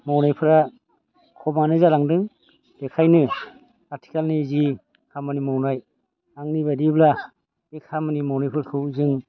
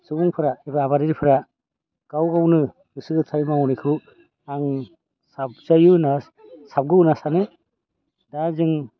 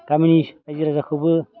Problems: constant background noise